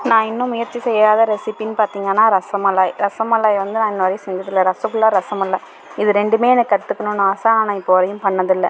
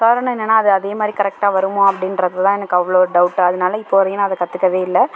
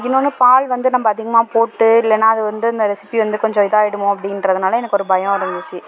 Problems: constant background noise